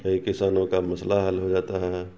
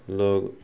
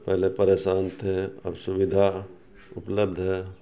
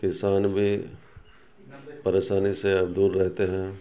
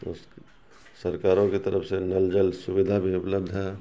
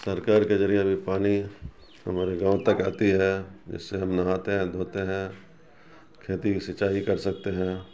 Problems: background sounds at intervals